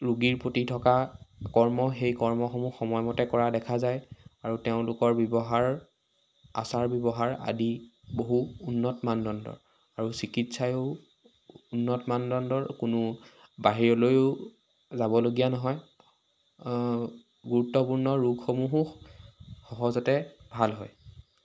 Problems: constant background noise